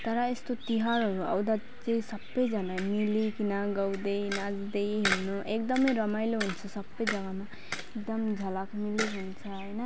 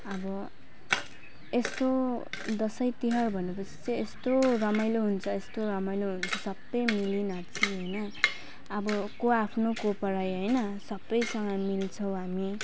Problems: constant background noise